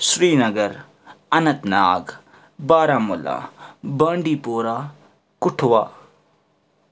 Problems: none marked